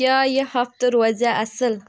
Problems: background sounds at intervals